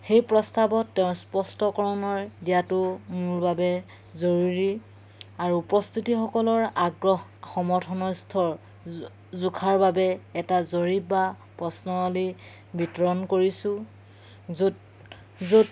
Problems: background sounds at intervals